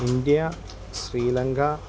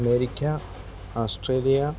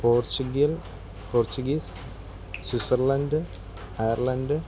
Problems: constant background noise